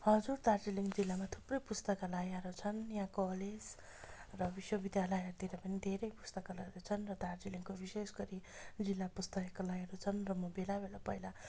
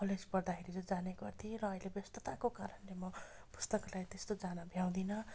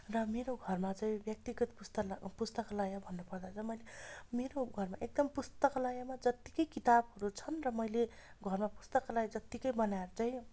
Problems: constant background noise